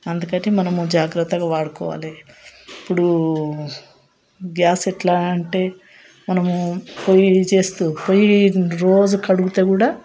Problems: none marked